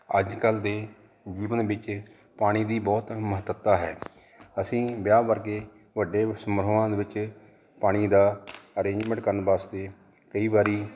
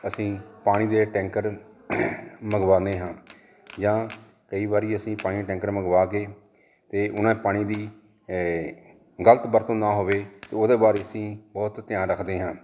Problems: none marked